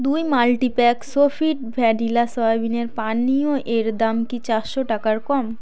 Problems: constant background noise, background conversations at intervals